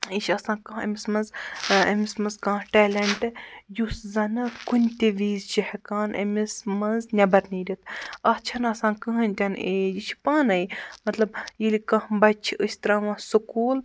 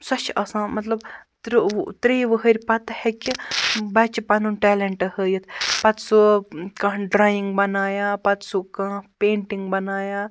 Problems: none marked